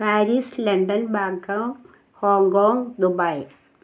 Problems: none marked